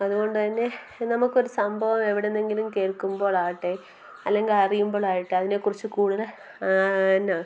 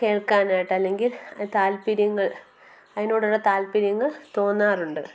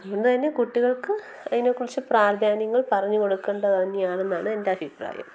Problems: constant background noise, low volume